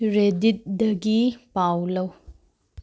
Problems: low volume